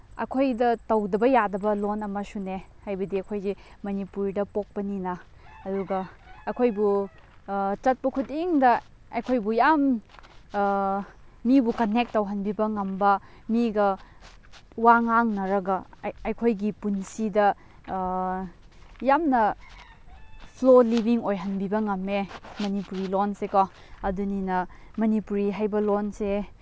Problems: background sounds at intervals